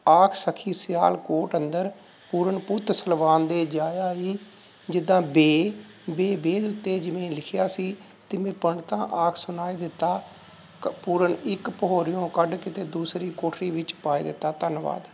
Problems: none marked